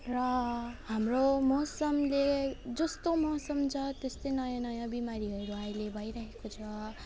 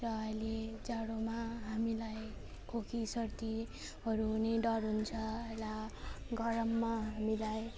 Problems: none marked